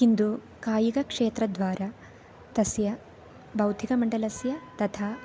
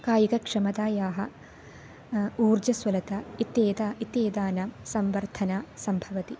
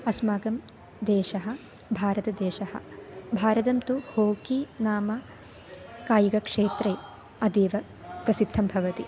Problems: constant background noise